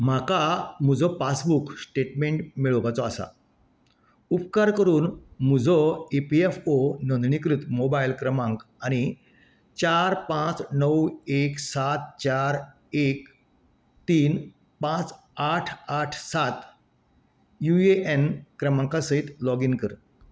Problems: none marked